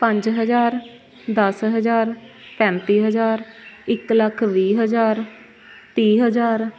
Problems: constant background noise, continuous background conversations